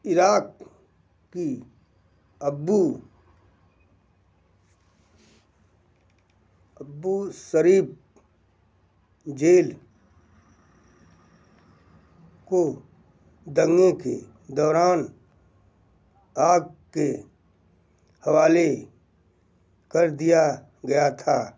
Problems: background sounds at intervals